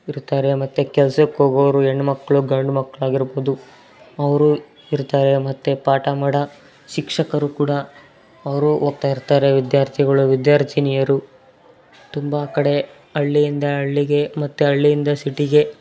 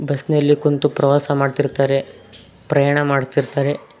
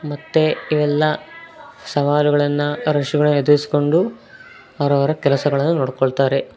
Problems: constant background noise